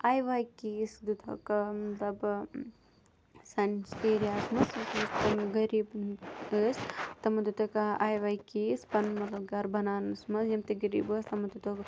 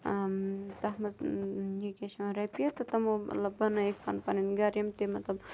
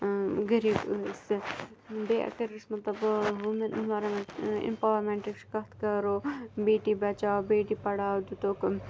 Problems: low volume